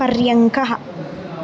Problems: constant background noise